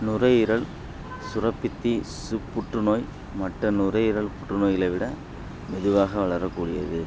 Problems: constant background noise